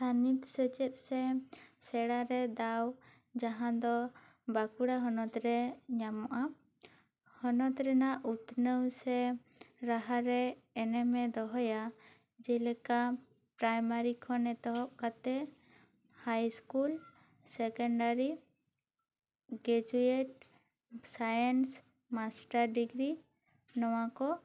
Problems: none marked